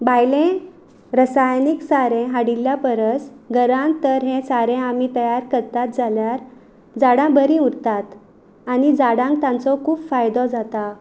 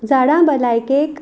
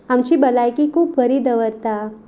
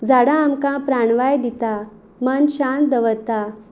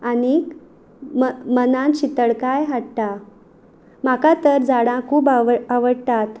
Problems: background sounds at intervals